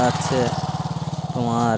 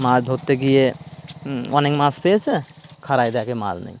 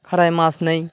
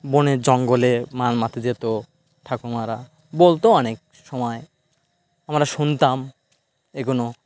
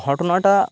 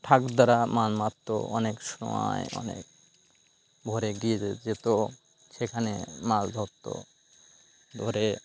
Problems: constant background noise